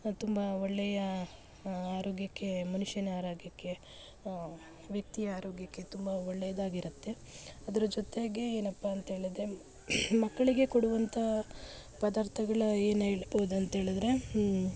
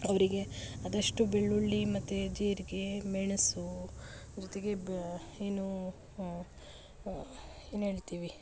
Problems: background sounds at intervals